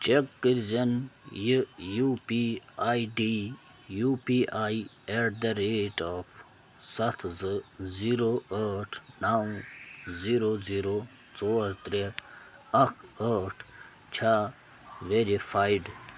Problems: constant background noise